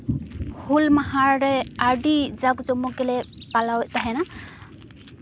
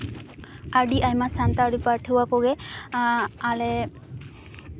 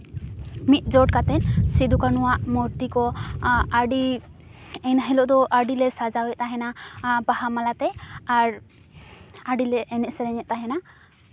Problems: background sounds at intervals, background conversations at intervals